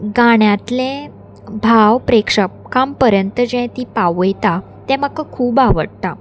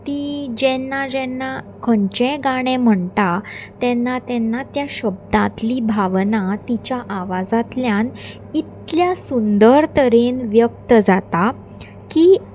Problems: none marked